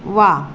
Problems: constant background noise